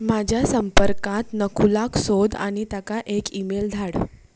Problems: constant background noise